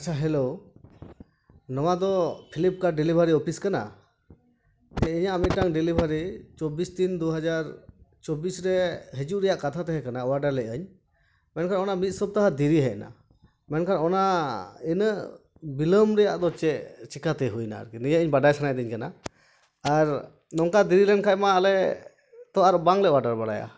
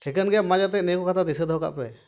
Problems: background sounds at intervals